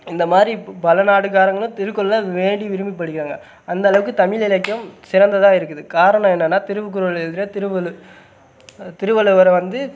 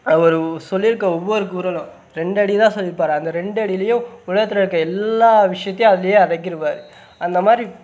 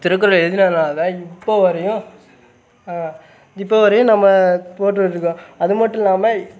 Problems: none marked